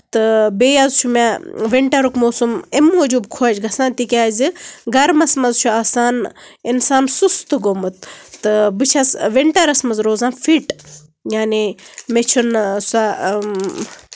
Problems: none marked